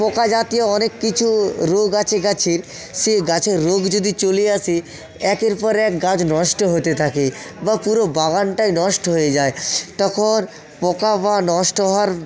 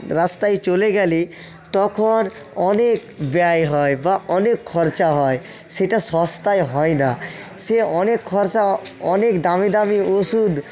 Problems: continuous background conversations, echo